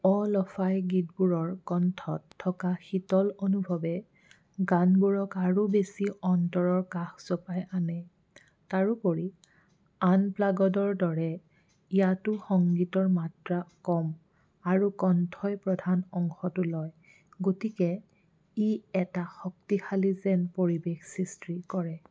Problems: background sounds at intervals